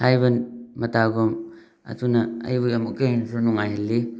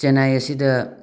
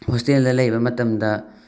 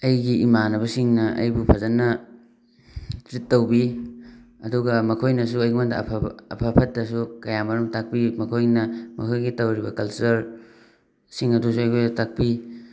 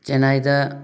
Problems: background sounds at intervals